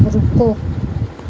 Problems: background sounds at intervals